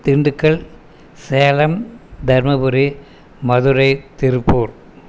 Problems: constant background noise